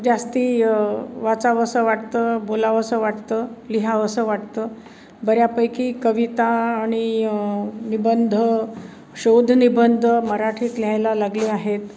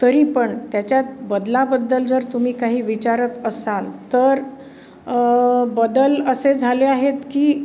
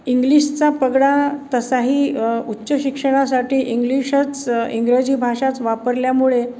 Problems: none marked